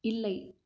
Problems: low volume